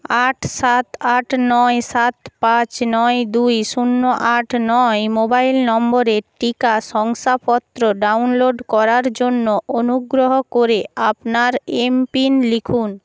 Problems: background sounds at intervals